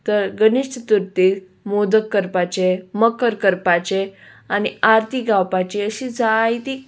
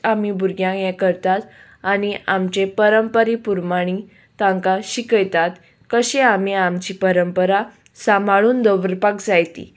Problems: none marked